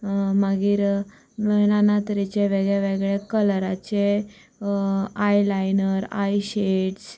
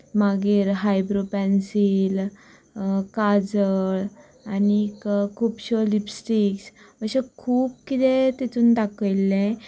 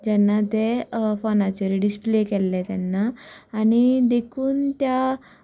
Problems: constant background noise, background conversations at intervals